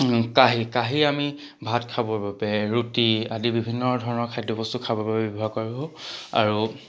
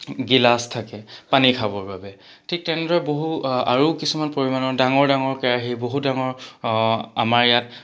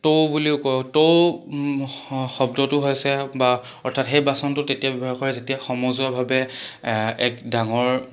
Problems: background sounds at intervals